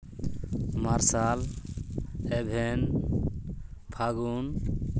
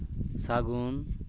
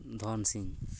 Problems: none marked